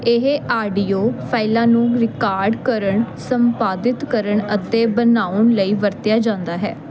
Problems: constant background noise